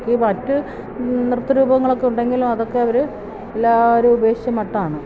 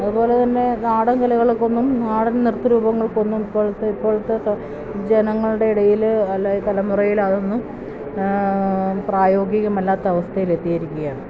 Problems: none marked